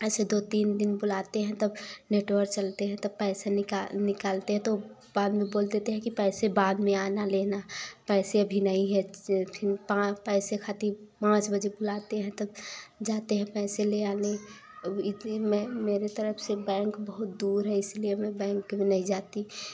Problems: constant background noise